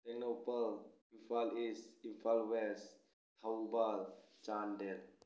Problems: none marked